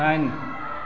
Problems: constant background noise